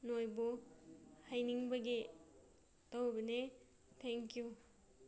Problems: background sounds at intervals